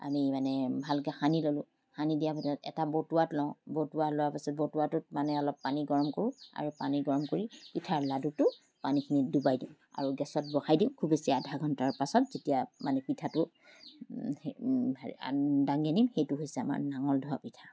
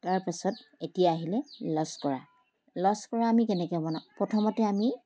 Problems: constant background noise